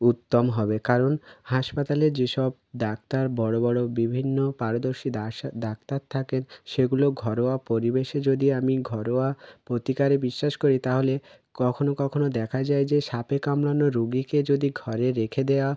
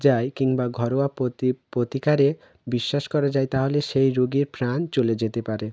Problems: none marked